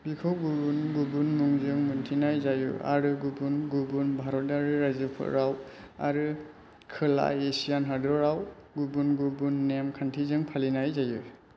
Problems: constant background noise